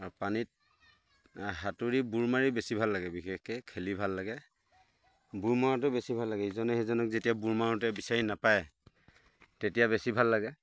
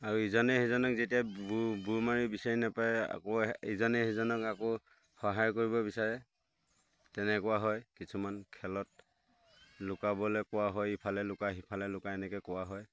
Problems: background sounds at intervals